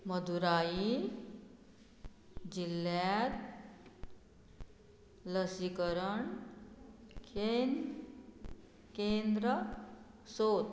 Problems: none marked